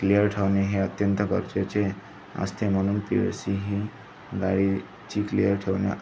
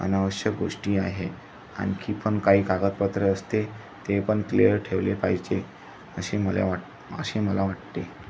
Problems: constant background noise